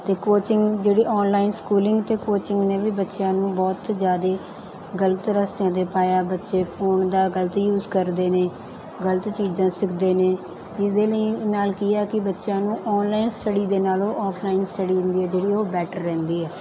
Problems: none marked